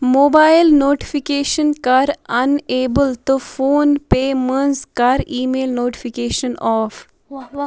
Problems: background conversations at intervals